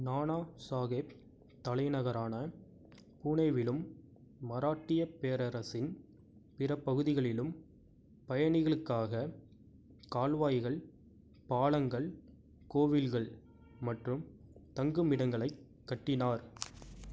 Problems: low volume